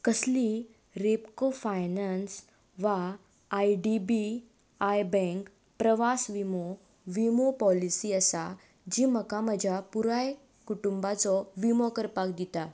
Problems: background sounds at intervals